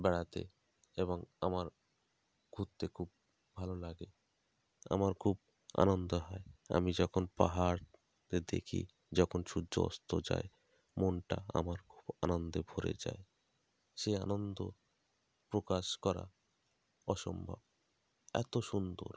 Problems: none marked